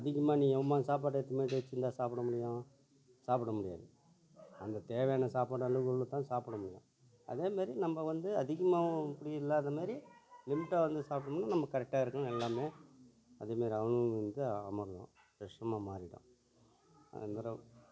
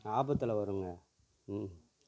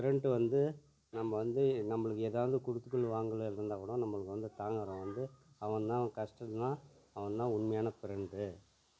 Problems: low volume